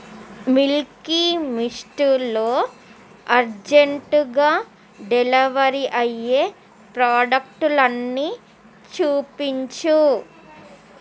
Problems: none marked